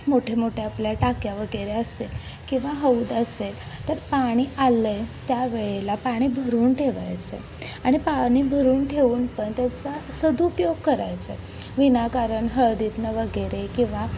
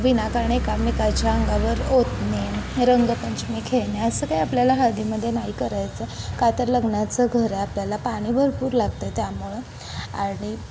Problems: constant background noise, continuous background conversations